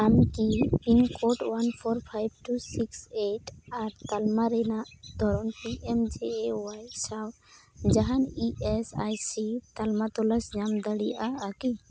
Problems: none marked